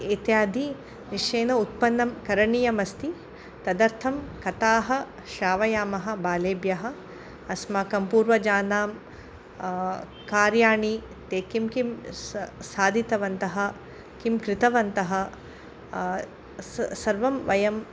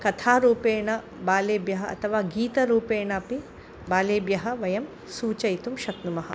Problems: background sounds at intervals